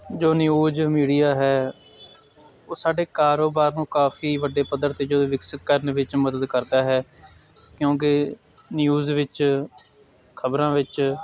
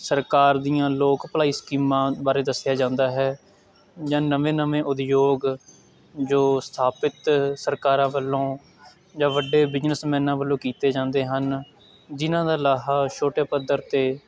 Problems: constant background noise